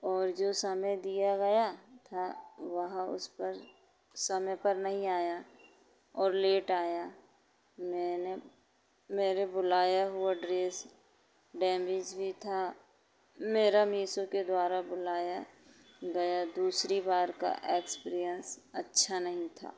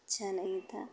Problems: constant background noise